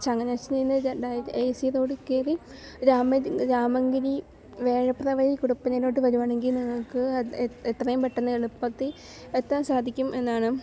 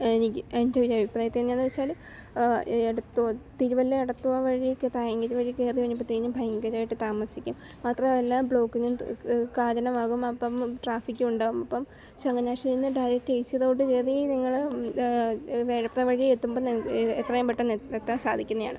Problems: low volume